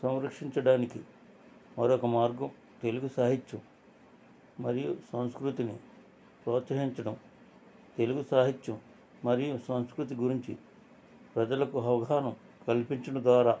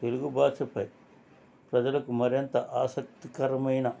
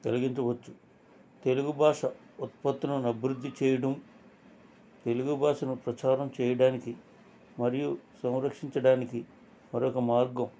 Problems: constant background noise, background conversations at intervals